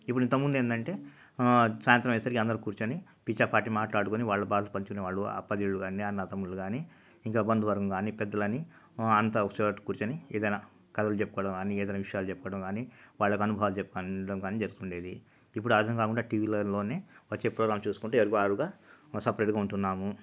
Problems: none marked